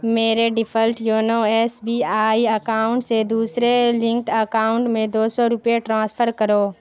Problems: constant background noise